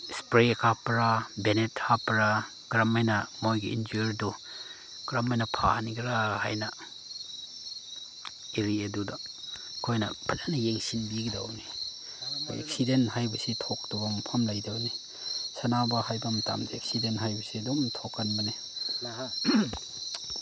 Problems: background sounds at intervals, background conversations at intervals